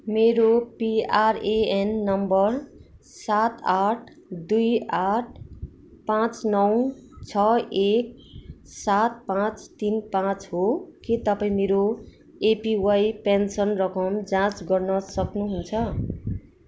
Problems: none marked